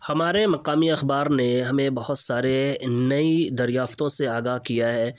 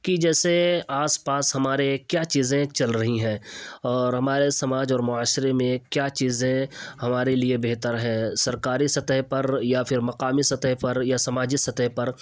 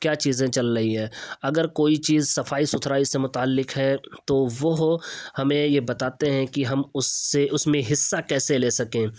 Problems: none marked